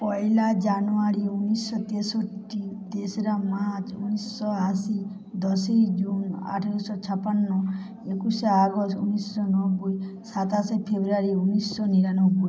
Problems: constant background noise